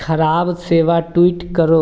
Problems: background sounds at intervals